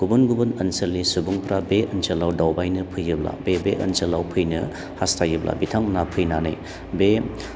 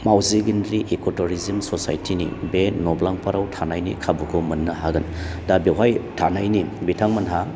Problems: low volume